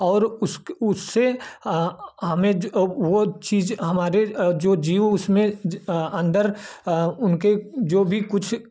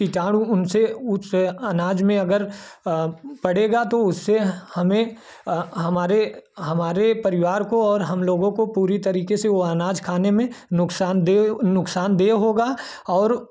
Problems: none marked